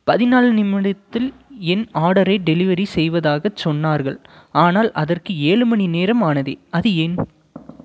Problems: none marked